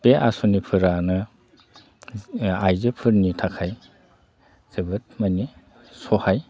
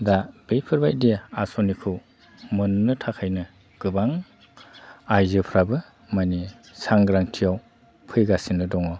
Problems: constant background noise